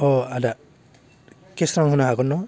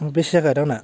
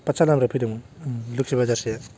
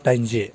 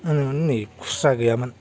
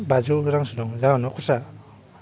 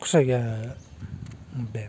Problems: constant background noise